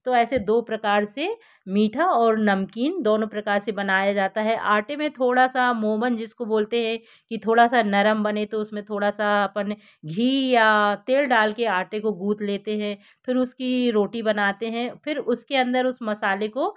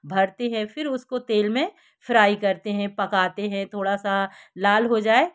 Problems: background sounds at intervals